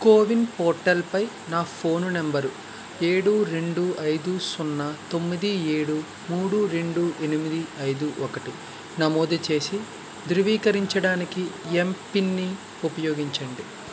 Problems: constant background noise